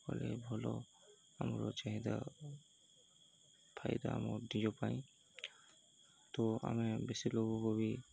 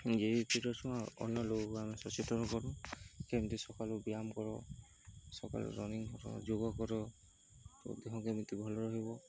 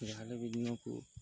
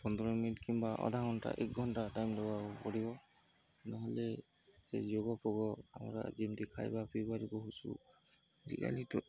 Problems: constant background noise, continuous background conversations